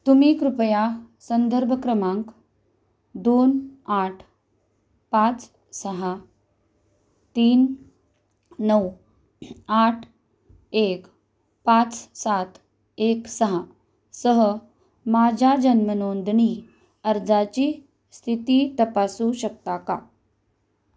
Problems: constant background noise